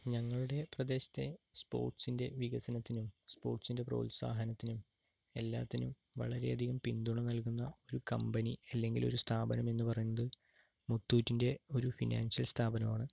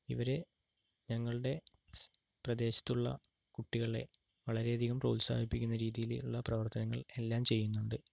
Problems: low volume